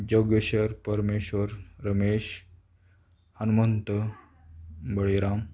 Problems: none marked